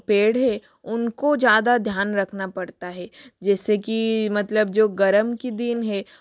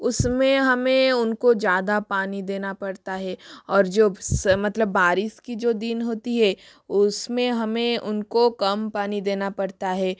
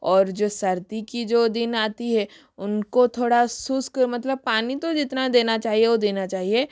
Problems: background sounds at intervals